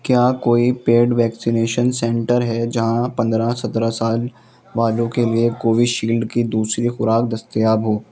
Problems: constant background noise